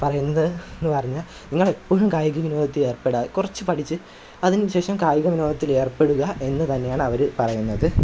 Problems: background sounds at intervals